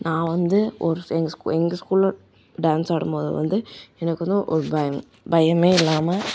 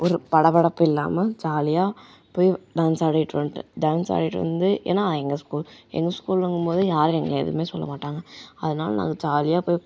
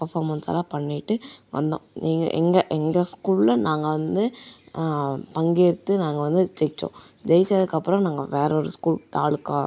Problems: none marked